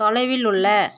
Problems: constant background noise